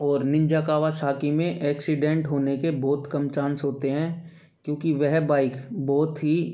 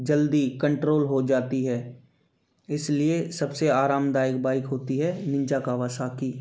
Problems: background sounds at intervals